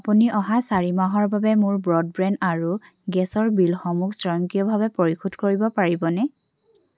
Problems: none marked